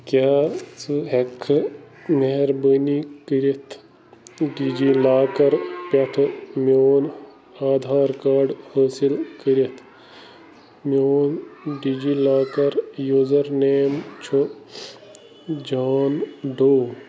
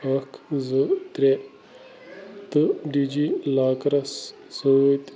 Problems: constant background noise